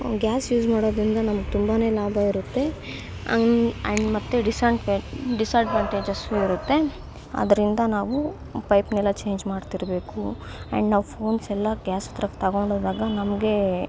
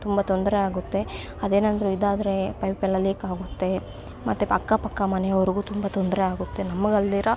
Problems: constant background noise